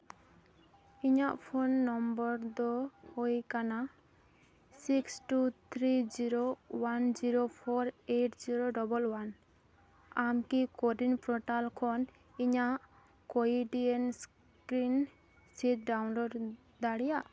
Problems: constant background noise, continuous background conversations